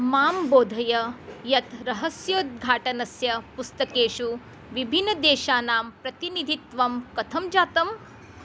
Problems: constant background noise